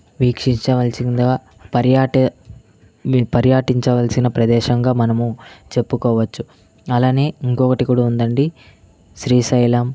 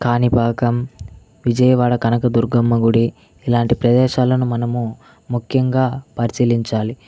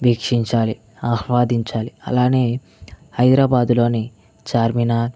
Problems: background sounds at intervals